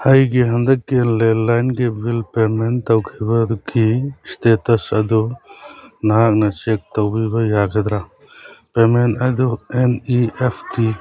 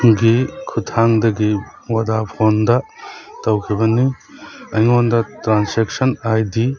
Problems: background sounds at intervals